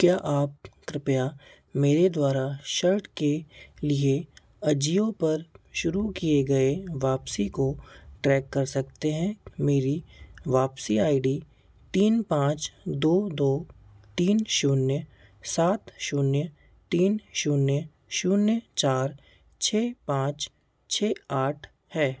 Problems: none marked